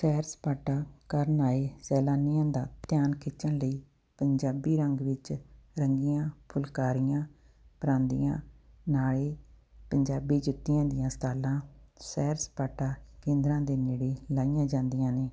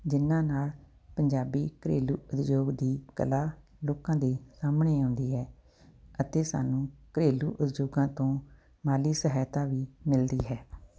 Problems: none marked